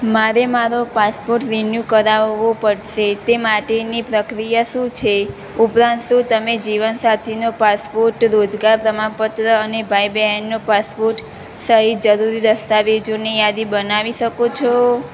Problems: none marked